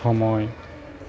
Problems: none marked